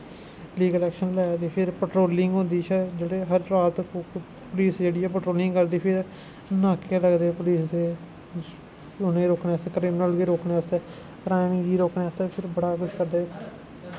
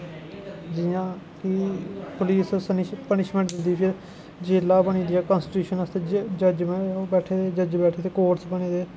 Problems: constant background noise